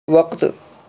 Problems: none marked